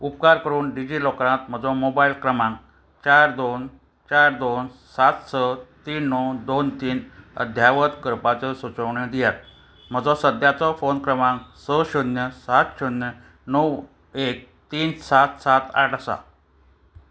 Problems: constant background noise